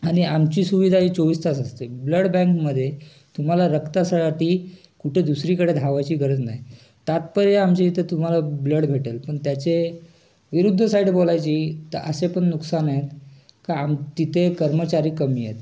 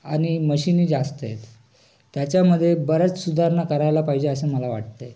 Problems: constant background noise, continuous background conversations